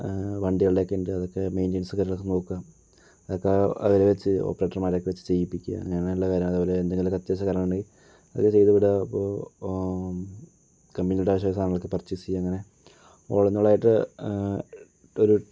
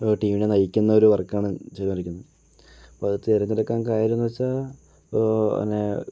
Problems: low volume